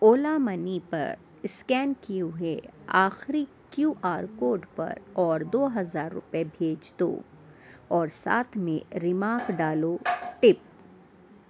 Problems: constant background noise